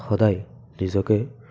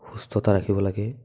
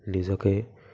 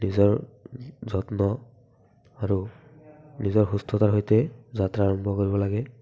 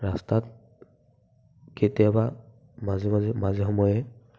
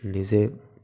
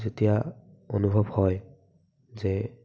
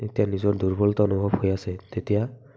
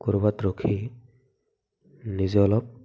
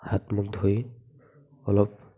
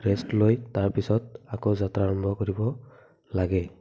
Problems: background sounds at intervals, background conversations at intervals